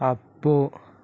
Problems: none marked